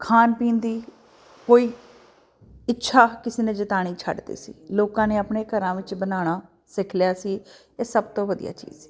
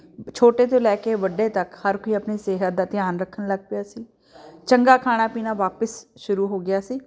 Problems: none marked